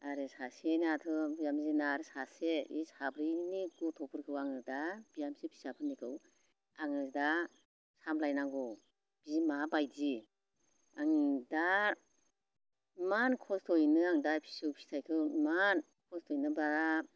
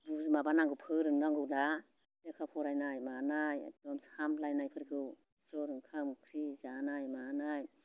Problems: constant background noise